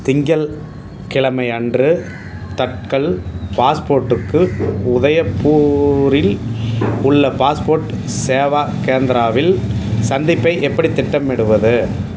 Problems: background sounds at intervals